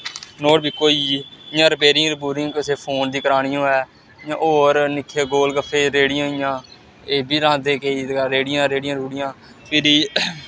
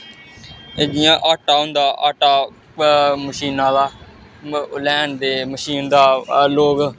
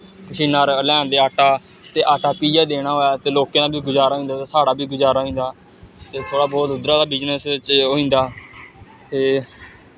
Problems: none marked